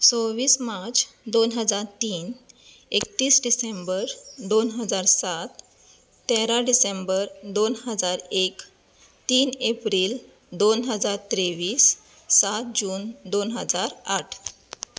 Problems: none marked